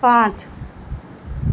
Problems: none marked